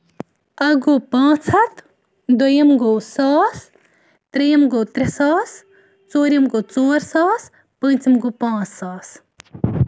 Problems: constant background noise